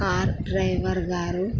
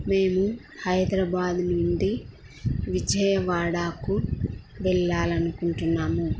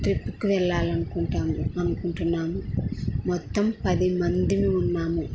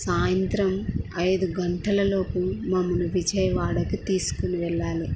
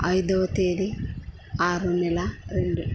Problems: low volume